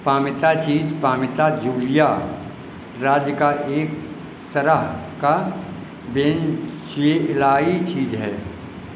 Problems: none marked